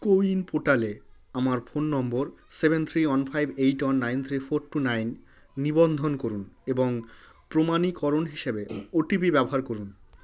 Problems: background conversations at intervals